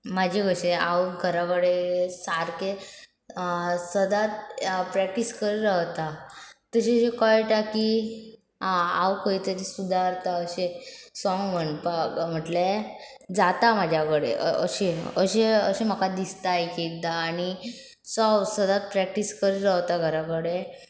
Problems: none marked